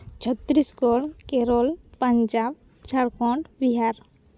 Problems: background sounds at intervals